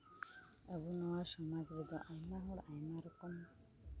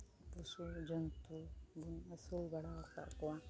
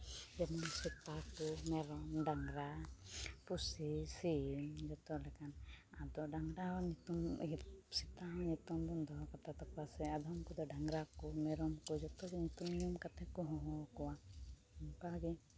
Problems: constant background noise, low volume